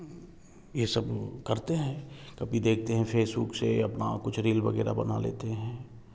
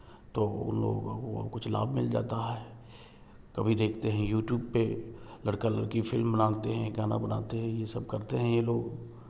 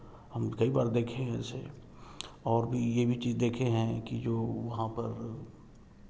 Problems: background sounds at intervals